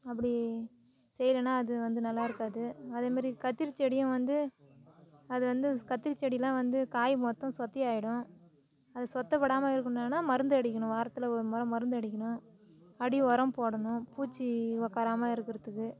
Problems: none marked